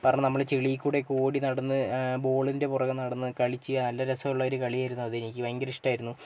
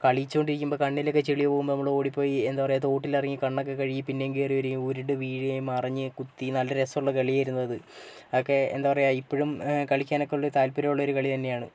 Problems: none marked